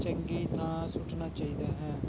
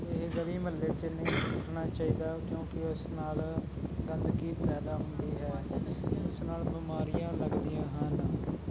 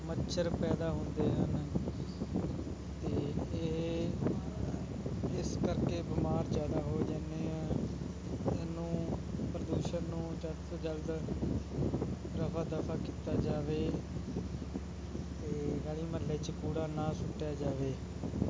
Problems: constant background noise, continuous background conversations